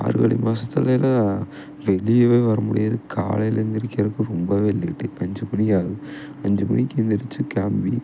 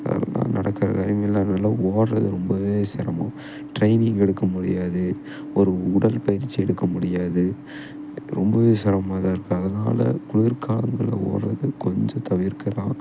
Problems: background sounds at intervals